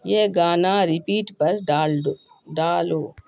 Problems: constant background noise